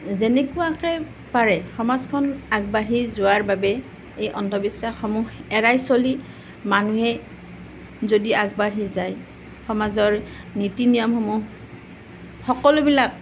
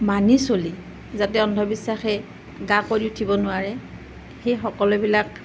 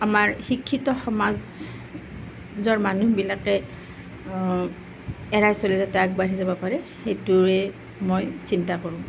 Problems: none marked